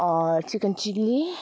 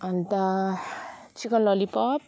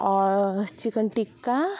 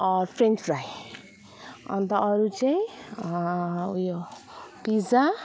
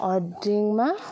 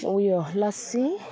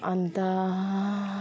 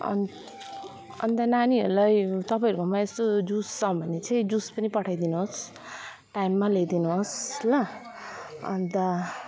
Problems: background sounds at intervals